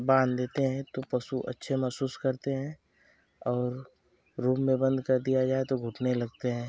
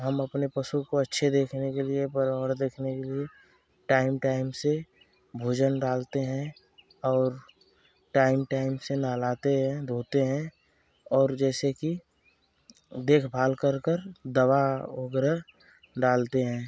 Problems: constant background noise